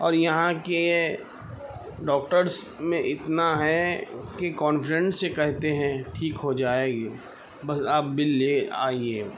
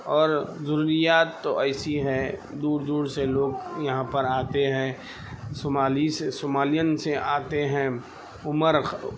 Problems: constant background noise, background conversations at intervals